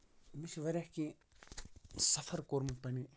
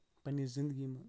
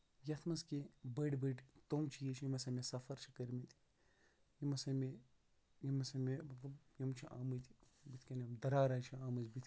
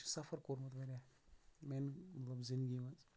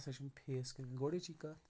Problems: background sounds at intervals, low volume